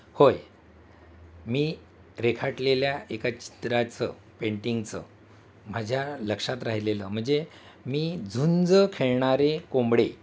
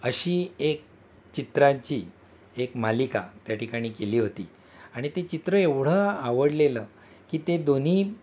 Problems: constant background noise, background conversations at intervals